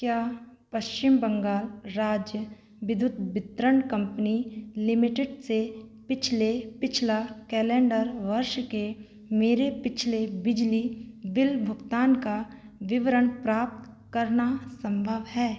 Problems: constant background noise